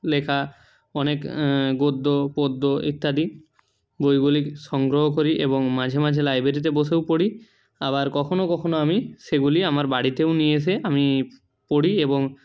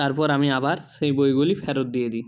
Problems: none marked